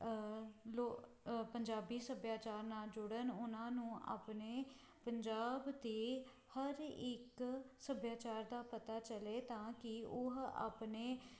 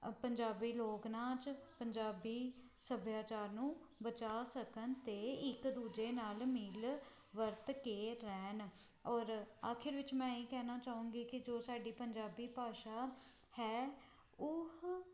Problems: background sounds at intervals